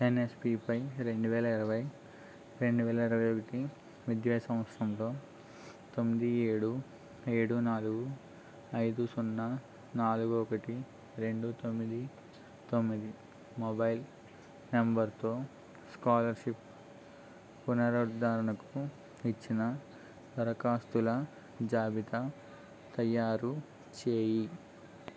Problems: none marked